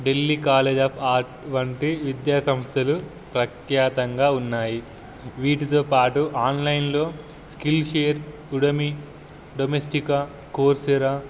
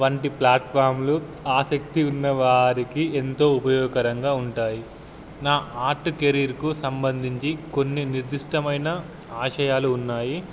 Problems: none marked